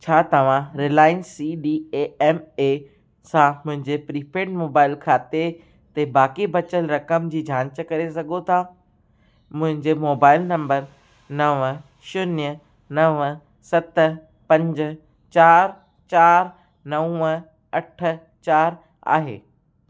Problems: constant background noise